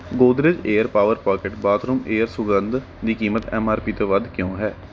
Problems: background sounds at intervals